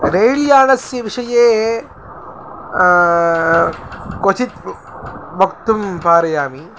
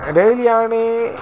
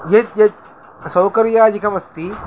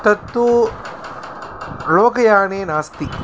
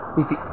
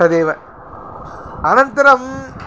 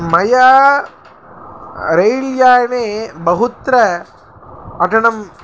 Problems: constant background noise